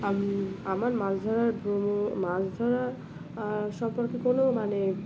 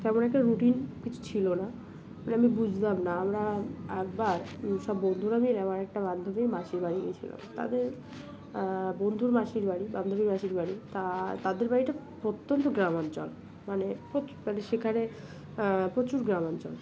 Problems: none marked